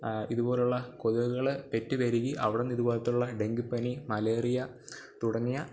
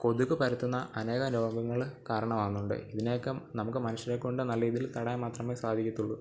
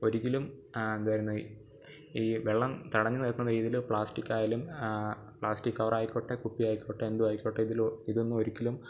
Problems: none marked